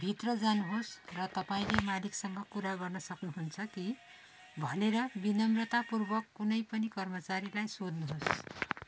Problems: constant background noise